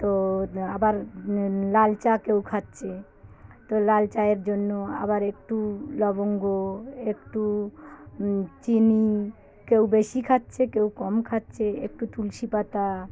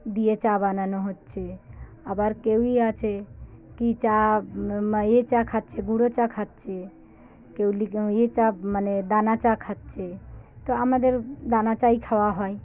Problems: none marked